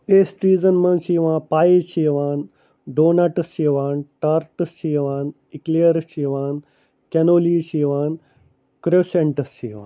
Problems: none marked